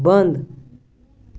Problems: none marked